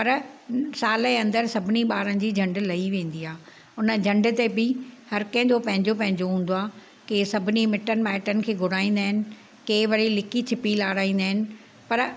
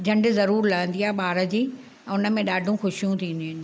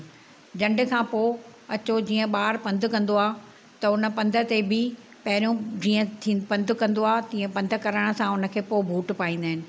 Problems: constant background noise